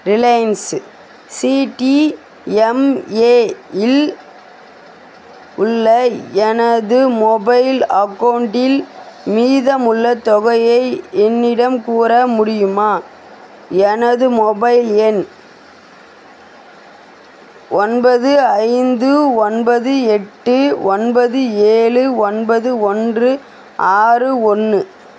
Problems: constant background noise